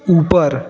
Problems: none marked